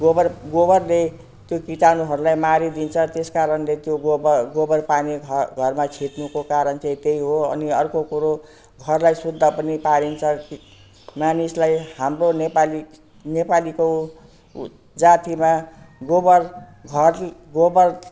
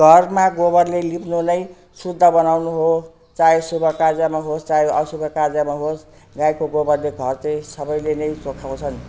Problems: constant background noise